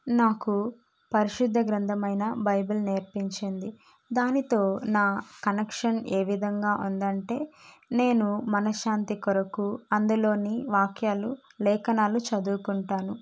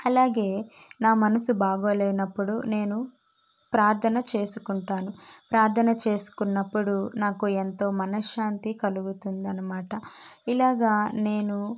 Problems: none marked